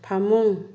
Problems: low volume